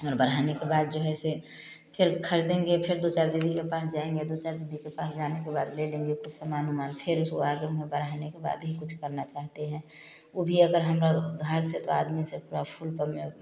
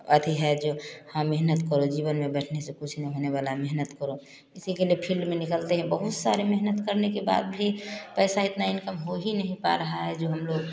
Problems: constant background noise, continuous background conversations